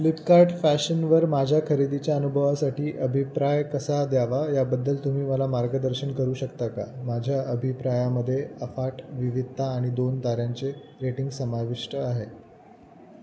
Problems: constant background noise